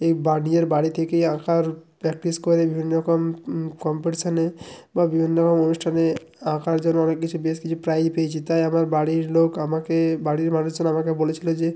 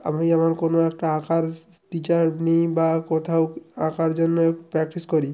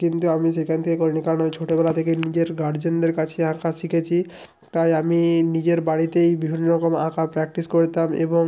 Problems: background sounds at intervals